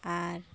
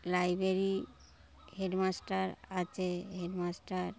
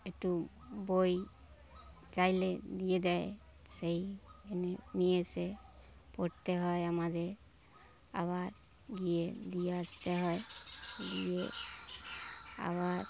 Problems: constant background noise